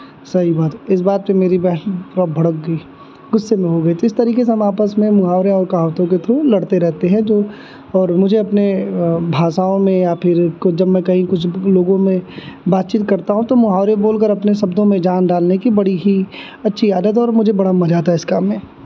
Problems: none marked